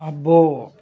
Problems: constant background noise